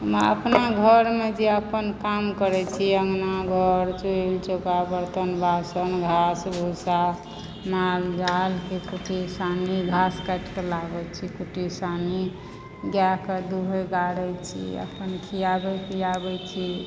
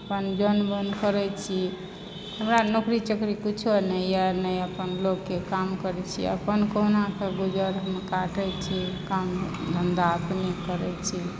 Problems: constant background noise